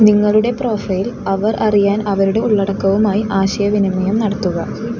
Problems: constant background noise